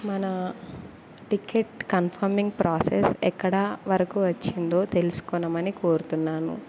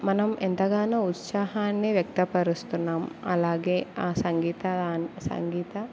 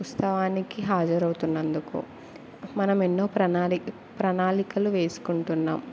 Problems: none marked